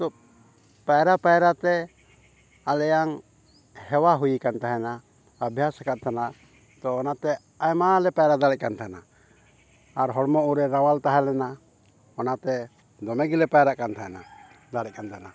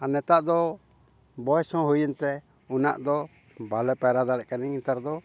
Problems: background sounds at intervals